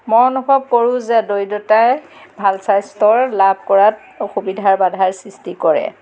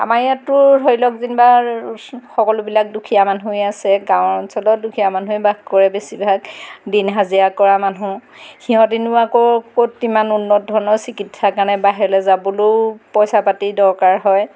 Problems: background sounds at intervals